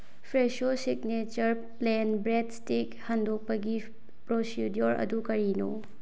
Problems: low volume